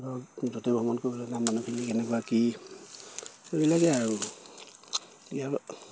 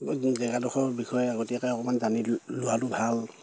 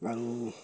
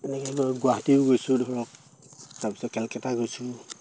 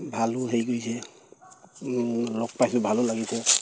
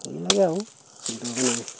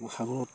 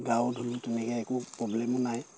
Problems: none marked